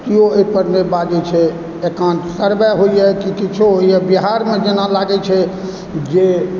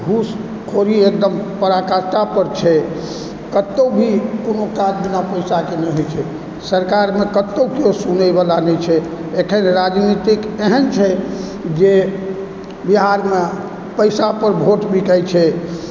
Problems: background sounds at intervals